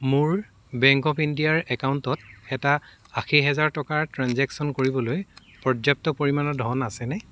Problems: background sounds at intervals